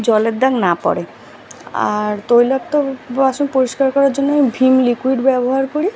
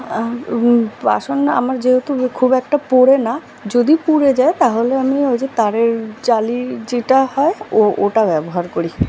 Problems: background sounds at intervals